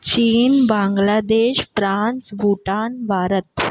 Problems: none marked